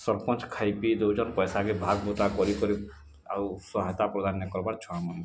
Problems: none marked